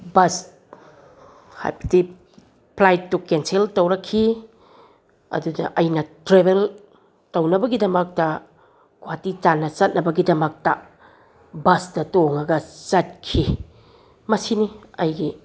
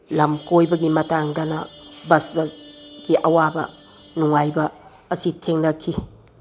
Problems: none marked